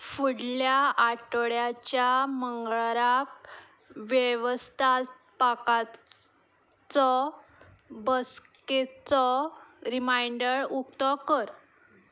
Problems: background sounds at intervals